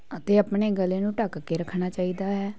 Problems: constant background noise